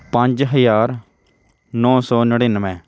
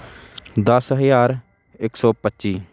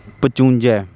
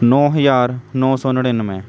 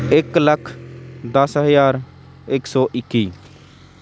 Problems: constant background noise